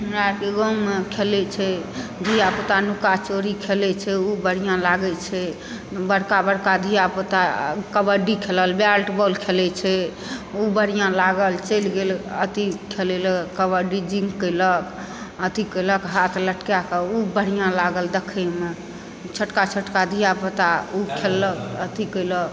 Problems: background sounds at intervals